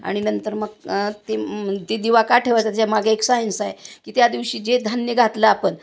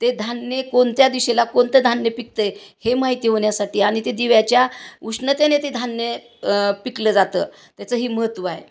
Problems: constant background noise